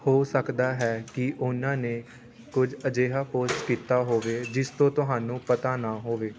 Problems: constant background noise, background conversations at intervals